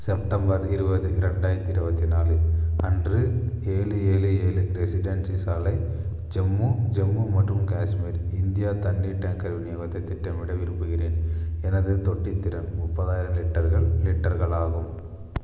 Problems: constant background noise